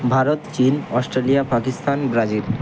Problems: constant background noise